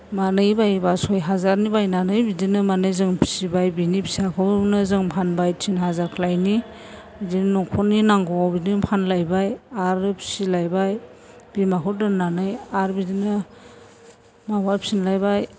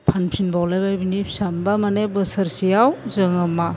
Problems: constant background noise